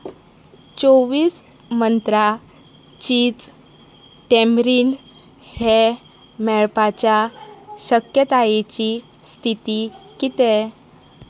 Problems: constant background noise